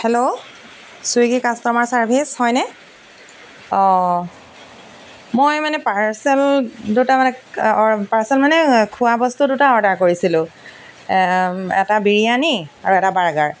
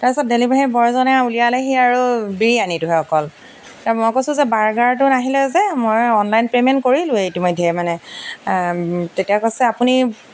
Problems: background sounds at intervals